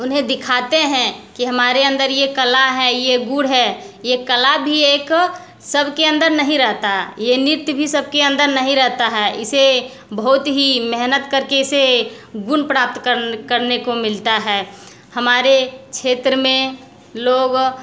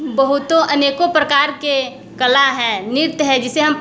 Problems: constant background noise, continuous background conversations